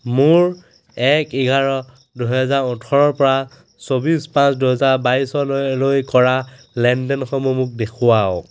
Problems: constant background noise